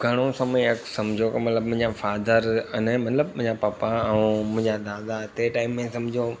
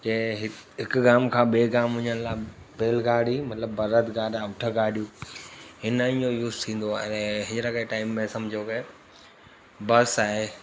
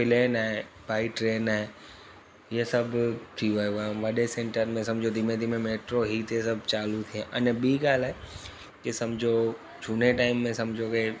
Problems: constant background noise